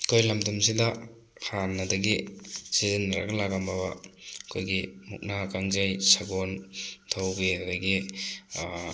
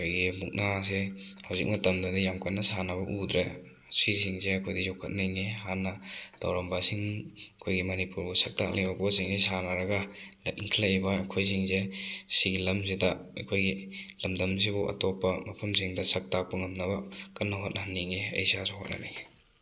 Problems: background sounds at intervals